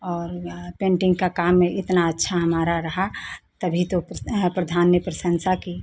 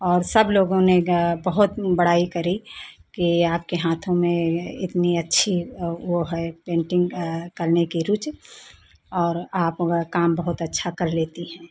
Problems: none marked